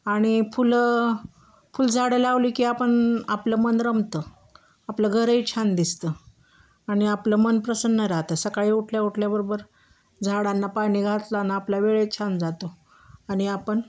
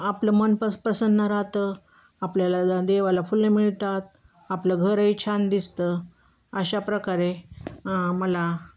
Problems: constant background noise